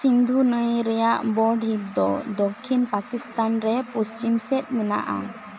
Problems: constant background noise